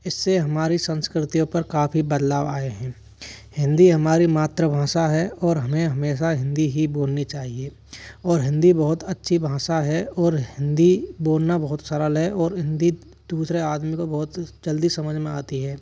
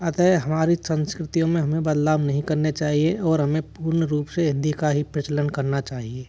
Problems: none marked